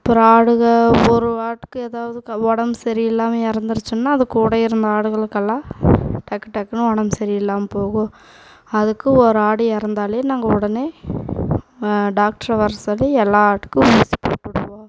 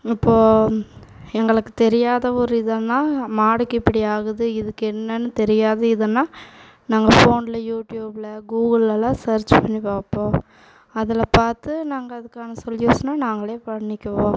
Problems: background sounds at intervals